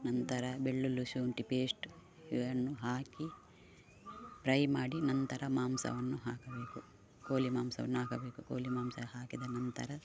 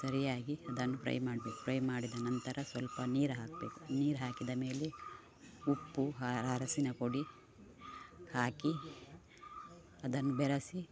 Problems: none marked